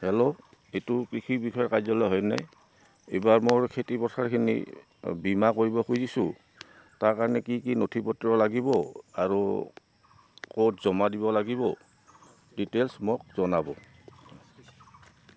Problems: constant background noise, background conversations at intervals